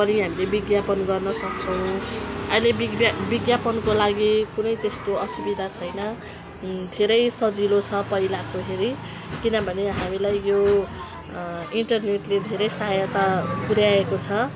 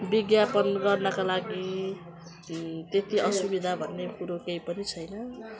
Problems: constant background noise